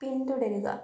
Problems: none marked